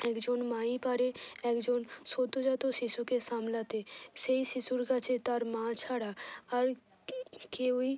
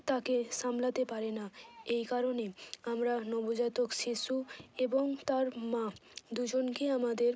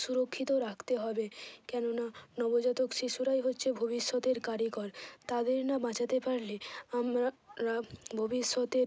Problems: none marked